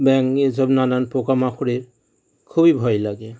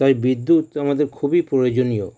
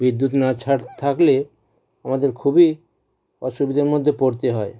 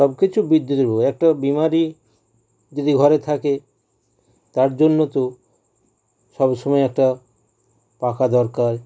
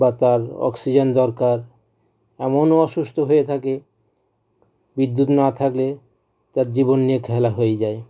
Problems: background sounds at intervals